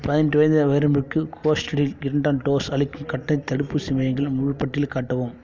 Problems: background sounds at intervals